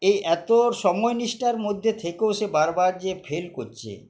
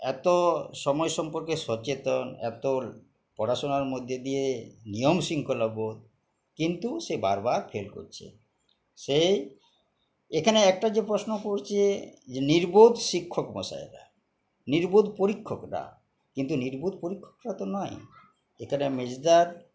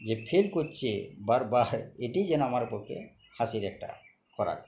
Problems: background sounds at intervals, background conversations at intervals